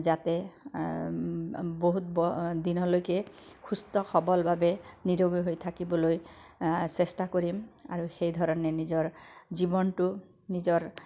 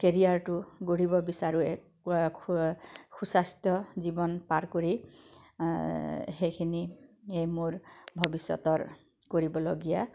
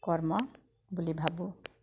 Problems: background sounds at intervals